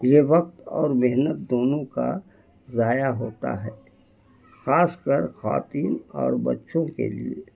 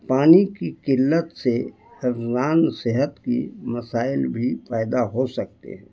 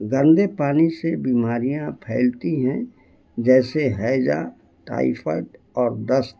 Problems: constant background noise